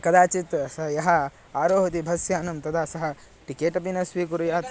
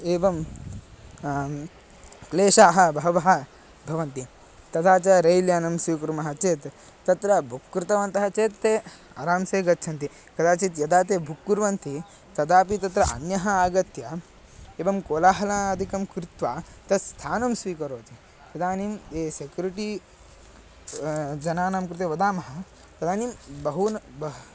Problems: constant background noise